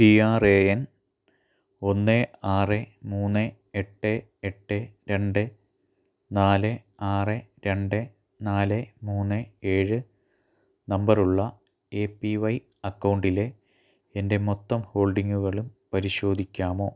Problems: low volume